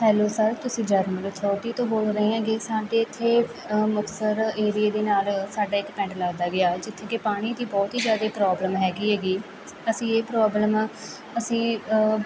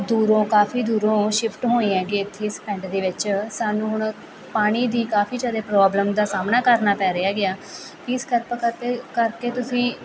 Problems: continuous background conversations